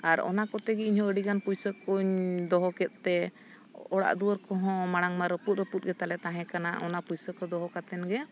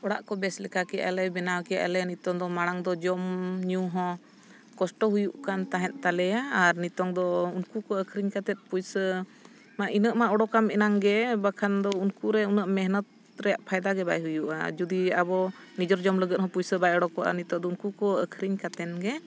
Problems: none marked